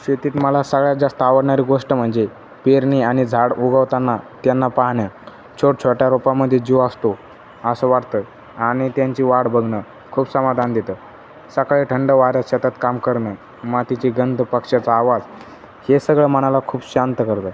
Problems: none marked